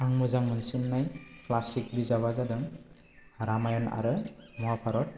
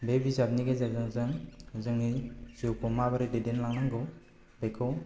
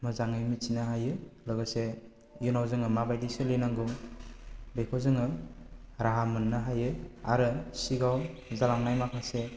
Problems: low volume